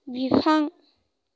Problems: none marked